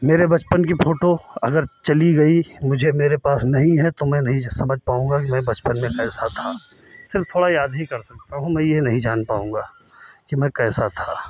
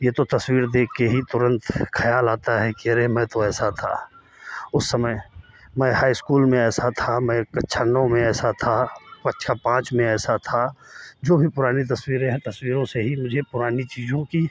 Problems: none marked